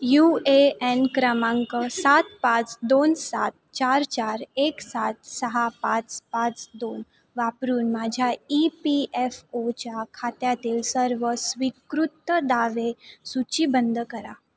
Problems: none marked